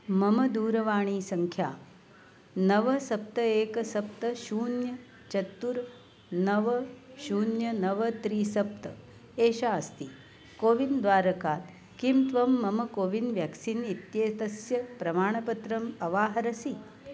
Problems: constant background noise